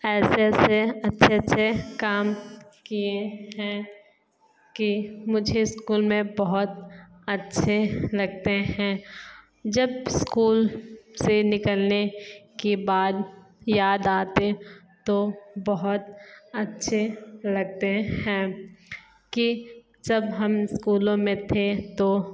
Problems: background sounds at intervals